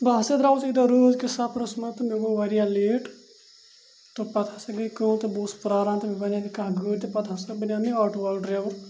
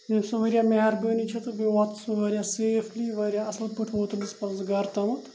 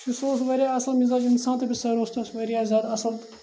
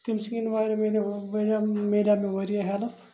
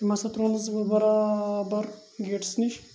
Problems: constant background noise